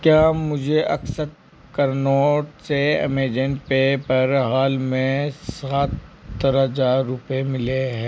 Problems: background sounds at intervals